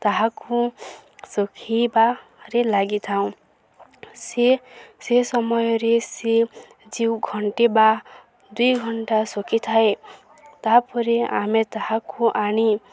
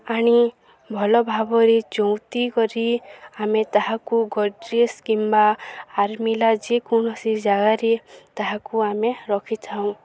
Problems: none marked